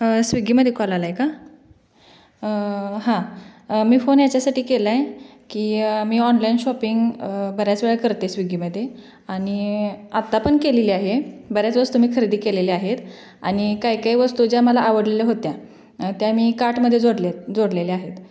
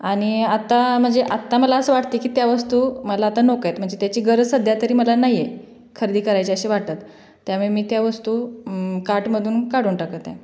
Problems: background sounds at intervals